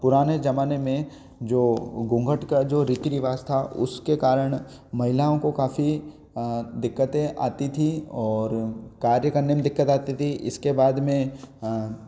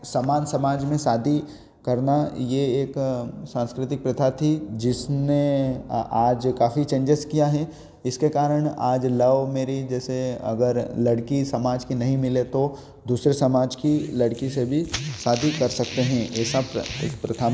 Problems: background sounds at intervals